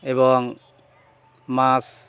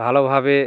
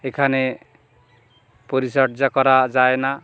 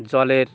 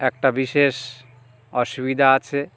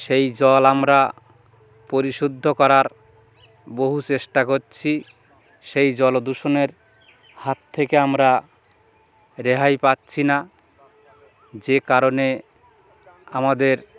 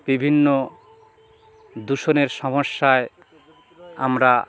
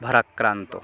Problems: constant background noise